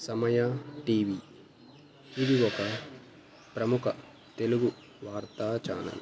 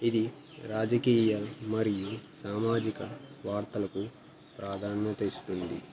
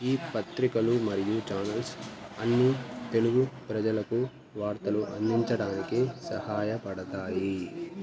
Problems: background sounds at intervals, background conversations at intervals